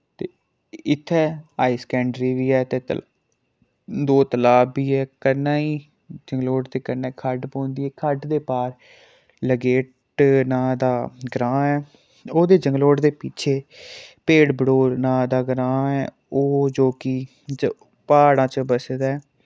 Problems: none marked